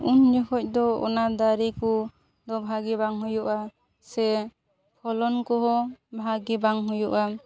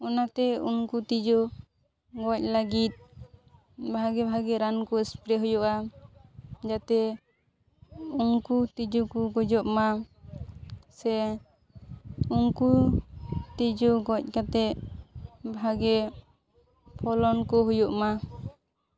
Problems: background sounds at intervals, background conversations at intervals